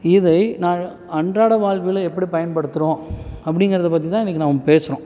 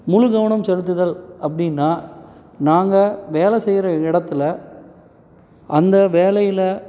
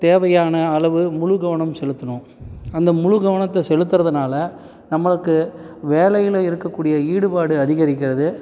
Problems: background sounds at intervals